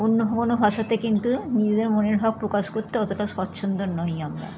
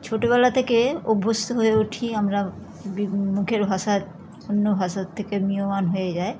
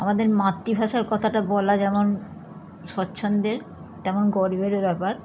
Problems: constant background noise, background conversations at intervals